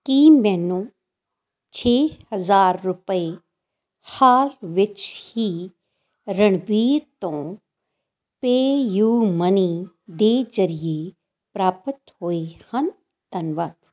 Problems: none marked